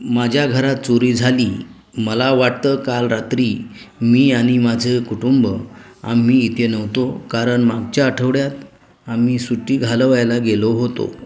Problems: background sounds at intervals